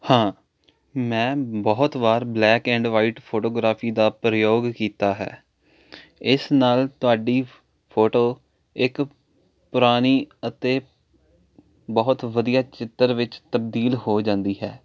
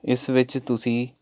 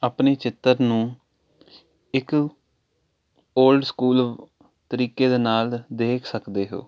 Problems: constant background noise